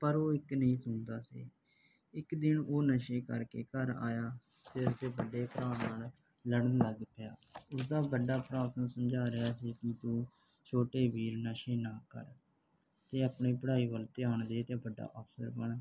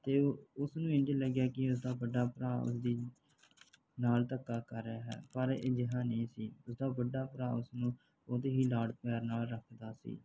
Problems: background sounds at intervals